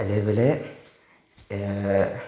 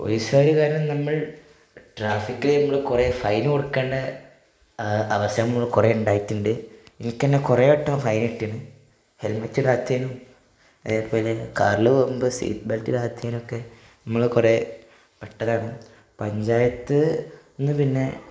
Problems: none marked